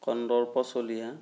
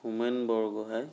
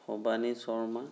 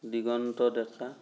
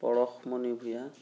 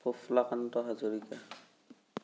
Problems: none marked